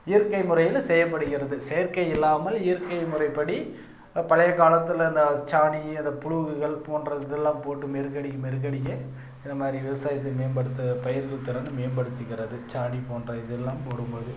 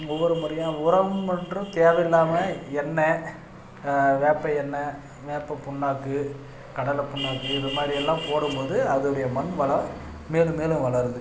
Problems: background sounds at intervals